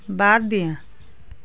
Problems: constant background noise, background conversations at intervals